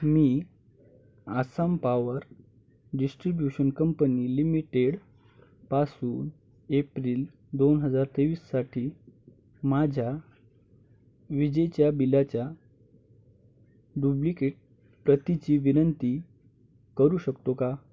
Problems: none marked